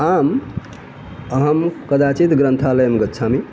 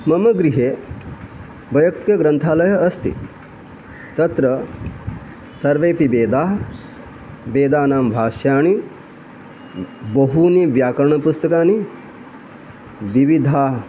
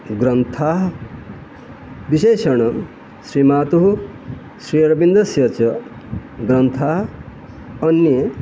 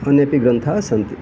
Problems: constant background noise